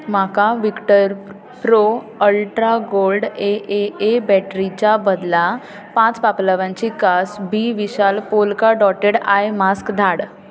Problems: background conversations at intervals